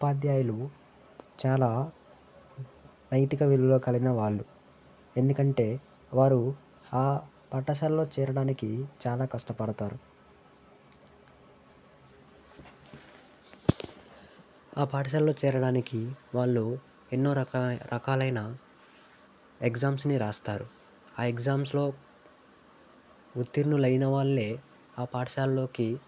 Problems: background sounds at intervals